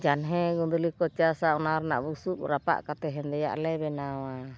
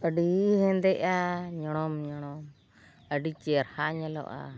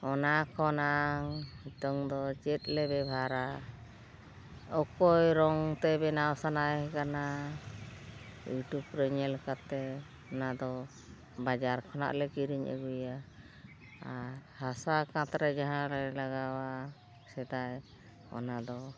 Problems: background sounds at intervals, low volume